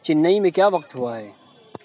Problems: constant background noise